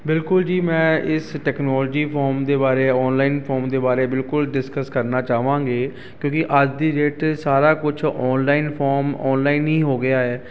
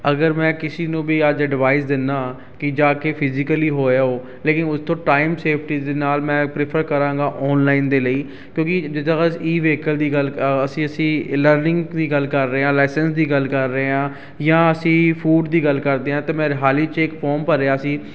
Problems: constant background noise